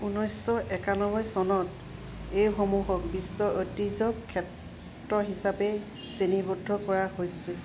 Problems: none marked